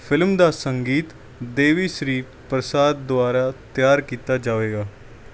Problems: none marked